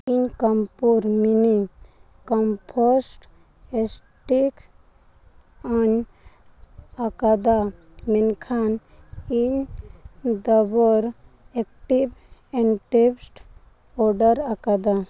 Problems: background sounds at intervals